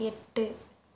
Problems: none marked